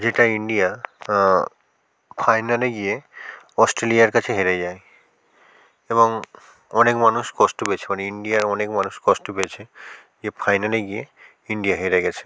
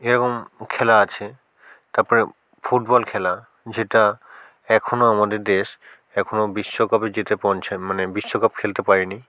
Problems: none marked